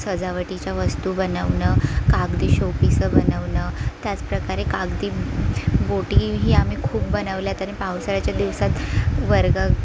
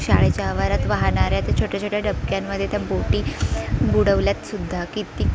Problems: constant background noise, continuous background conversations